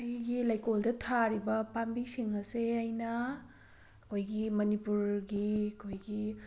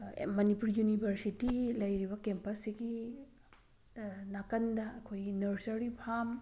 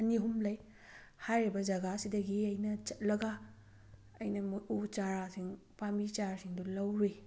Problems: none marked